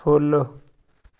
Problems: none marked